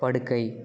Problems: continuous background conversations